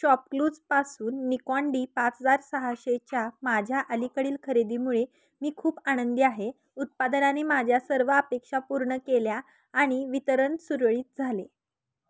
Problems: none marked